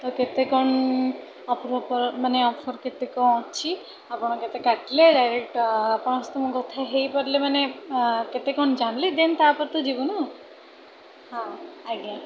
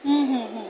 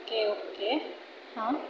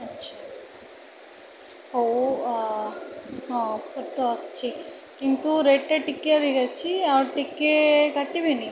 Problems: constant background noise, continuous background conversations